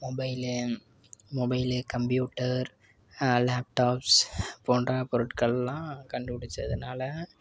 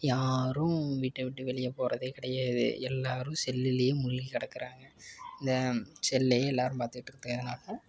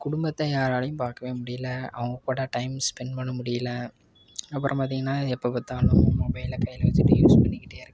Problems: constant background noise, background conversations at intervals